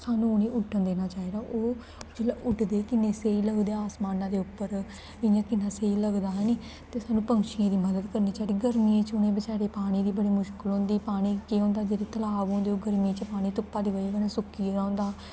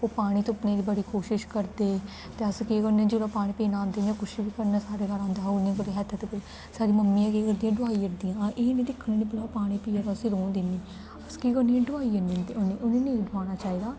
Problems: constant background noise